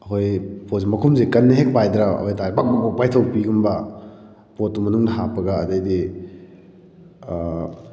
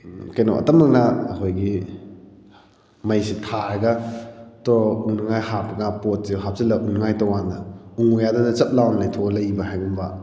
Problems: none marked